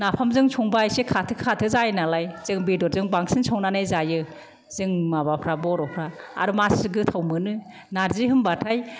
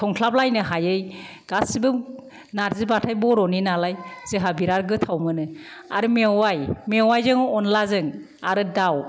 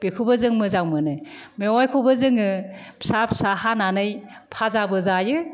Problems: none marked